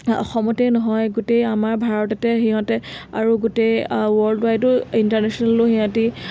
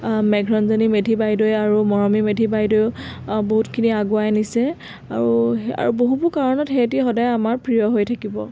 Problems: constant background noise